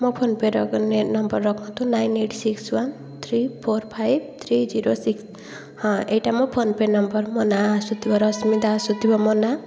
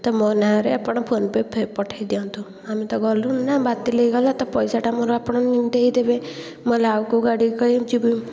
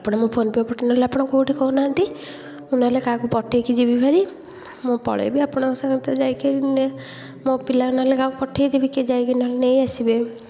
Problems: continuous background conversations